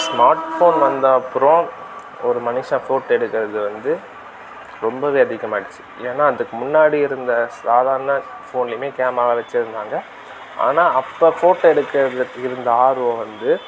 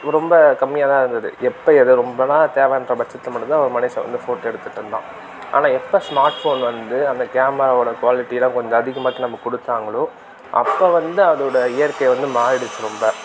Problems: constant background noise